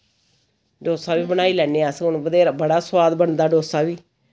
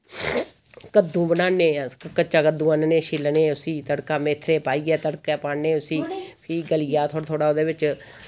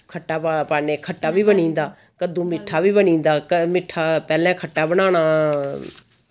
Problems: constant background noise